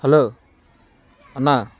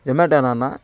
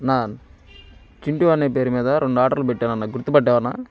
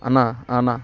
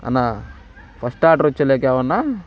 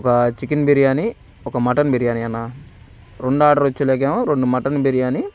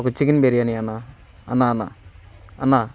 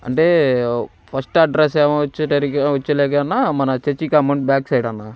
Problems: constant background noise